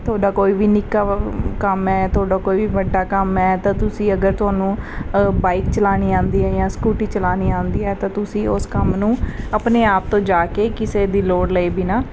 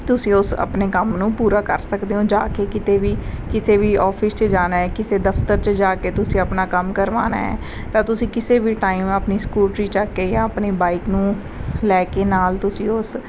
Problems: none marked